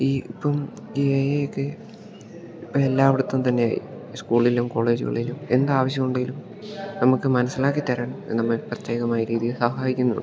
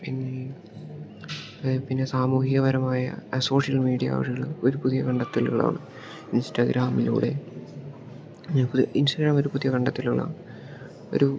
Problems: background sounds at intervals